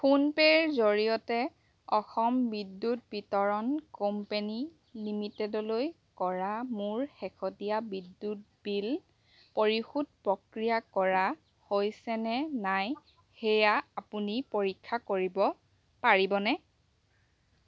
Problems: none marked